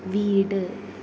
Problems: none marked